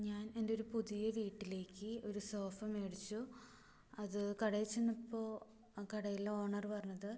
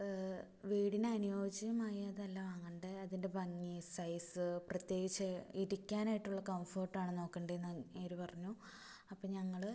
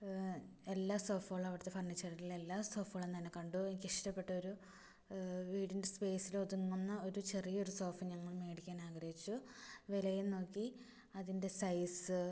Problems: low volume